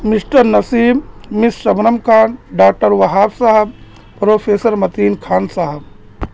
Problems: constant background noise